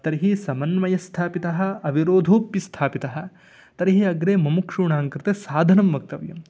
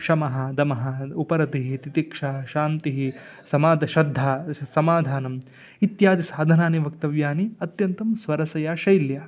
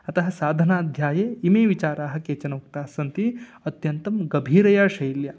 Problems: none marked